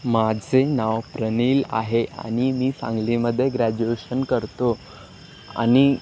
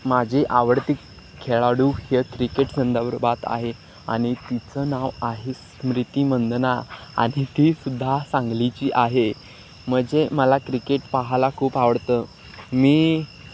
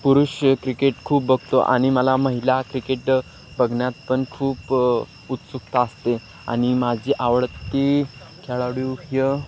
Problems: constant background noise